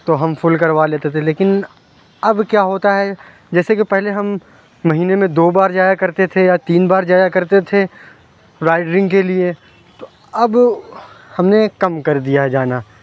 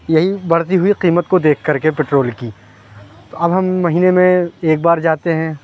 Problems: constant background noise